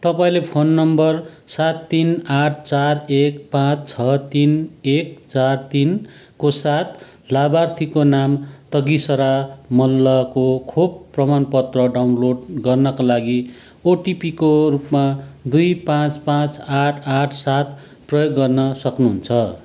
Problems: none marked